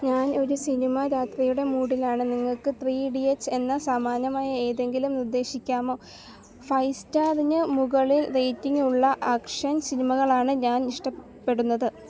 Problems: background sounds at intervals